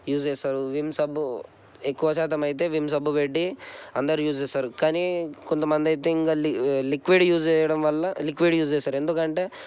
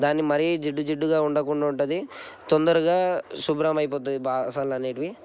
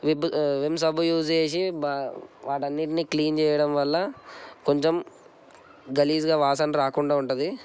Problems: constant background noise